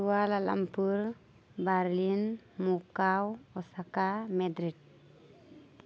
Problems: constant background noise